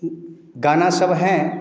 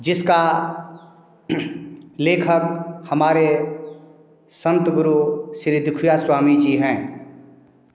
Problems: background sounds at intervals